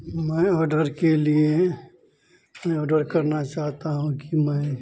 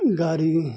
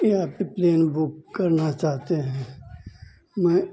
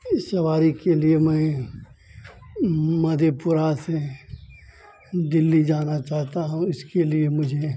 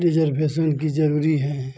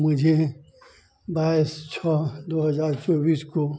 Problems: constant background noise, background conversations at intervals